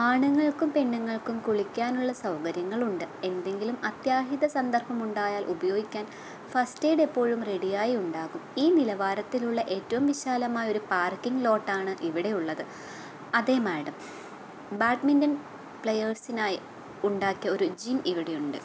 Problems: none marked